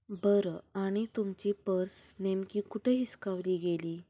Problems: background sounds at intervals, low volume